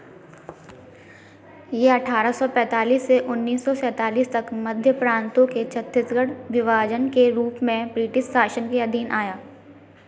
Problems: constant background noise, background conversations at intervals